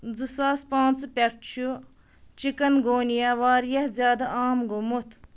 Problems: none marked